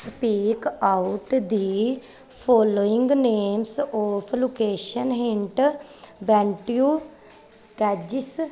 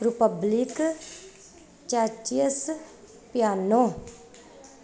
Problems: none marked